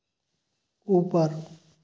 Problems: background sounds at intervals